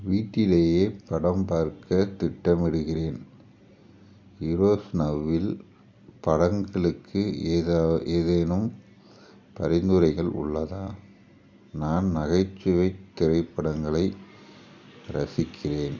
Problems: none marked